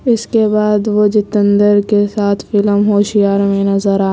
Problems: constant background noise